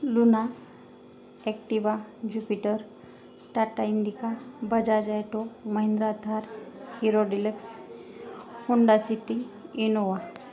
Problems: constant background noise, continuous background conversations